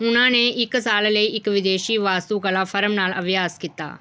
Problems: none marked